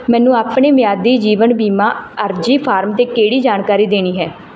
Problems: background sounds at intervals